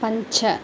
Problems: constant background noise